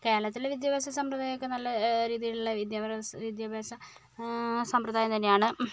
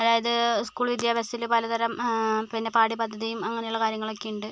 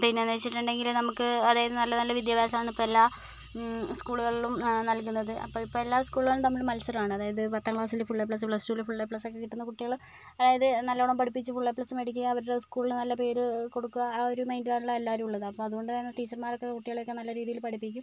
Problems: none marked